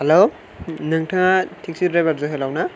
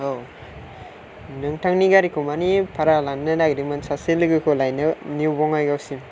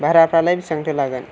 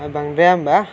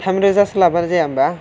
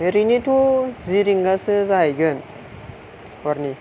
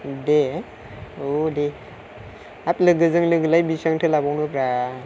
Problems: low volume